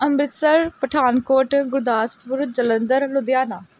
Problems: none marked